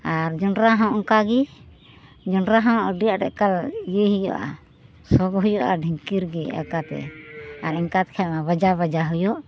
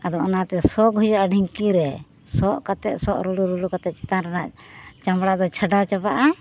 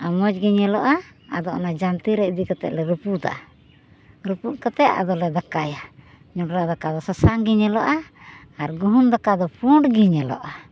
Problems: background sounds at intervals